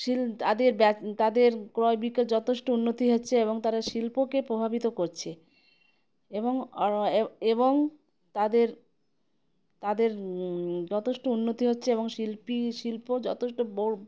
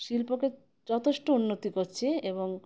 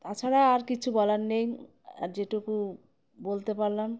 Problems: background sounds at intervals